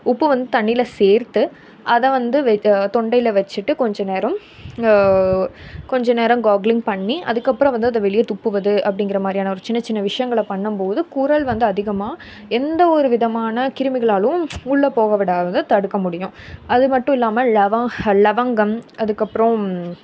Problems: none marked